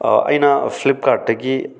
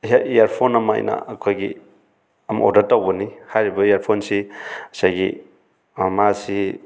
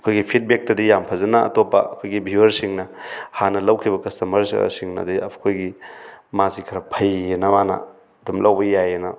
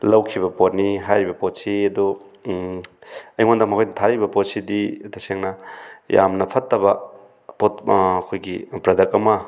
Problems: none marked